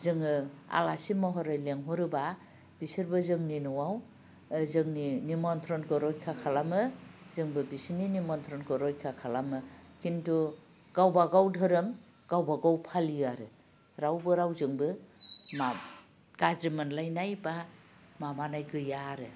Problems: low volume